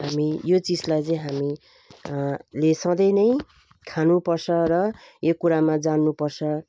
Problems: none marked